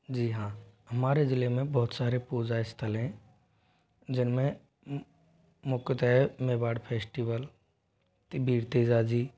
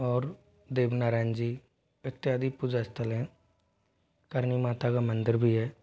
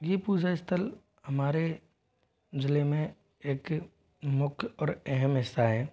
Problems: background sounds at intervals